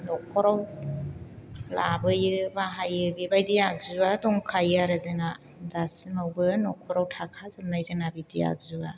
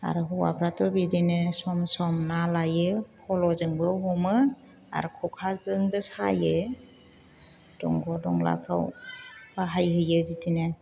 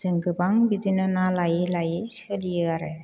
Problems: none marked